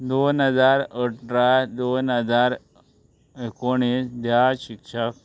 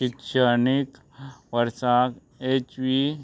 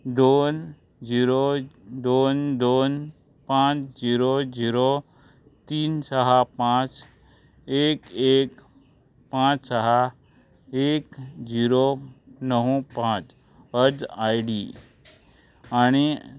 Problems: background sounds at intervals